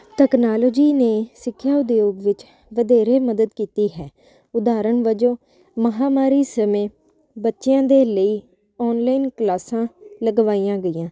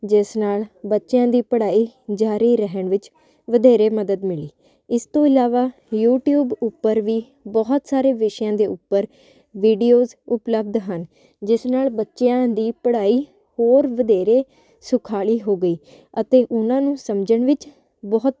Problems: constant background noise